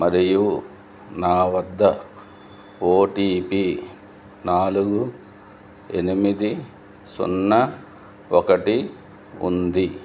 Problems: none marked